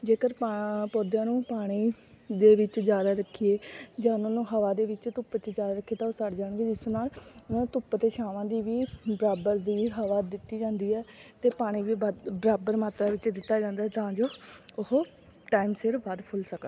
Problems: constant background noise, background conversations at intervals